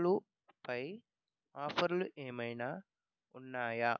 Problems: low volume